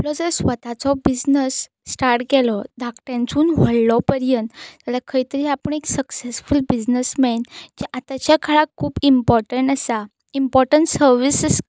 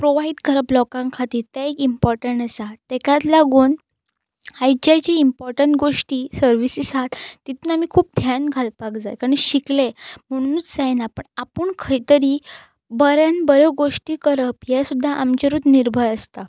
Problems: constant background noise